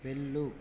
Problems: low volume